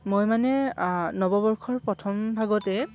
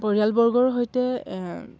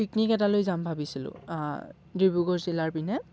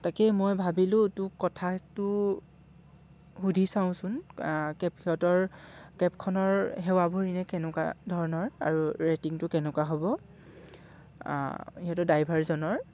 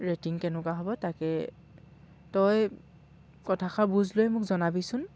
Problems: background sounds at intervals